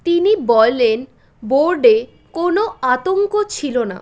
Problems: background sounds at intervals